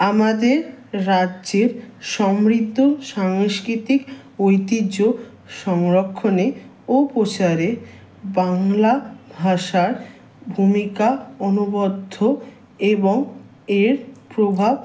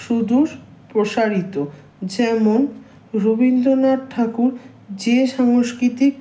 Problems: background sounds at intervals